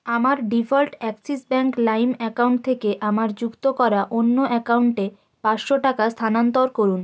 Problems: constant background noise